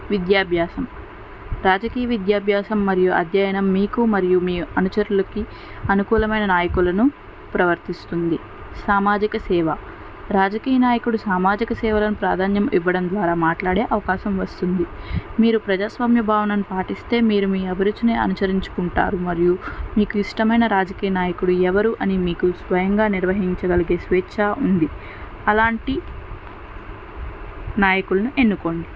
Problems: constant background noise